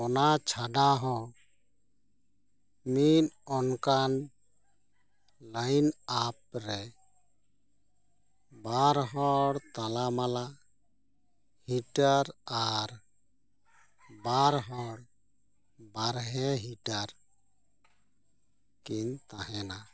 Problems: none marked